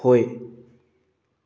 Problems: none marked